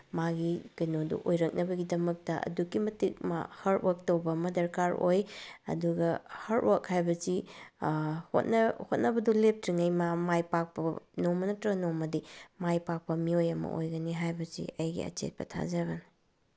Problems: none marked